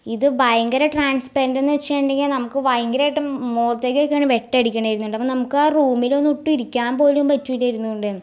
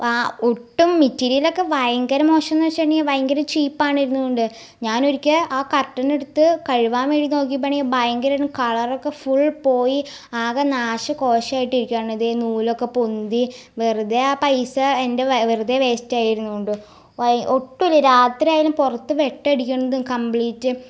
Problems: none marked